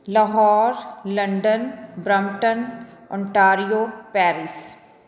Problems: background conversations at intervals